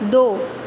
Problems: constant background noise, echo